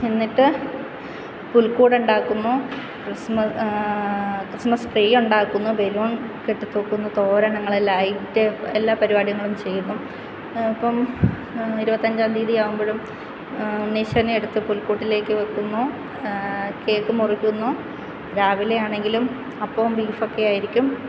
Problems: constant background noise